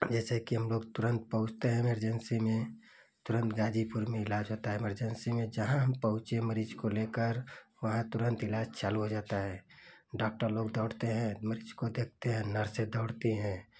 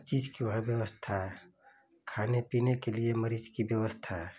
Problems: none marked